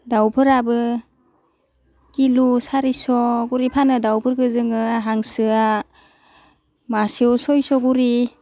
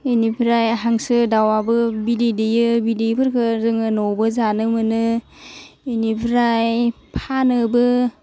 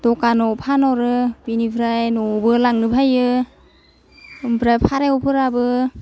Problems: low volume